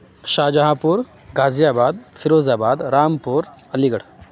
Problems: background sounds at intervals